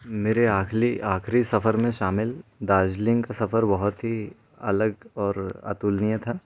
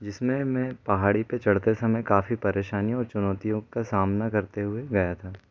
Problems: background sounds at intervals